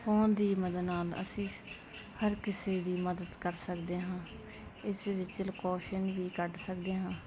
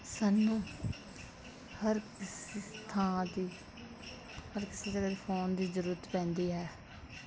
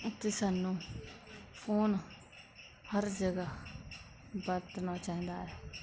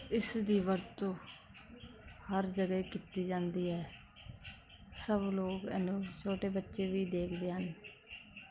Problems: constant background noise